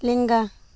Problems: none marked